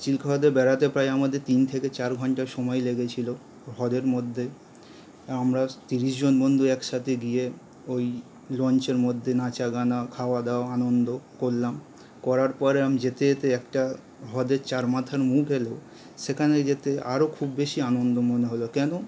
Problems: none marked